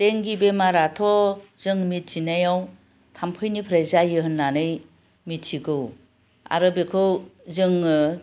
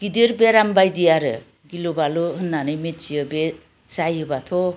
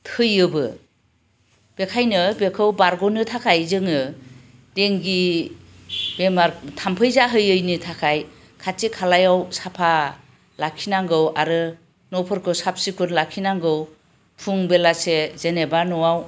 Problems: constant background noise